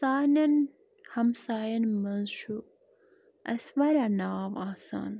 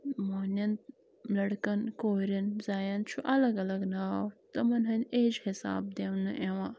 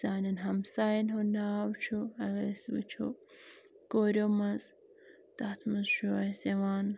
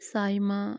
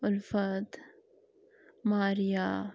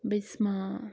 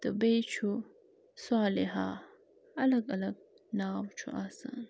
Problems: constant background noise